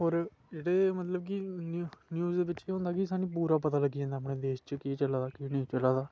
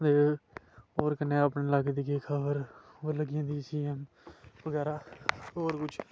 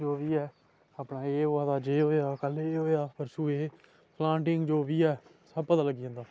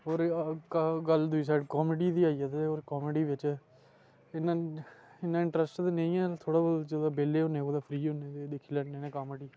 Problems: background sounds at intervals